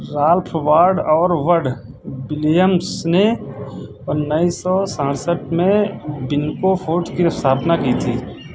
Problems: constant background noise